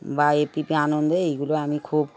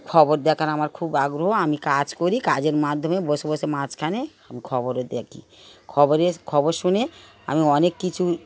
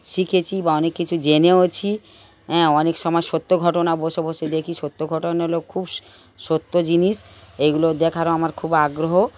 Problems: background sounds at intervals, background conversations at intervals